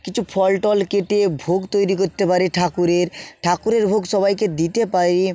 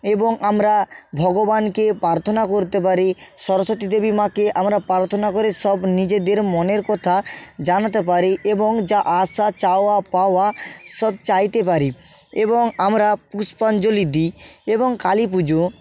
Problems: background sounds at intervals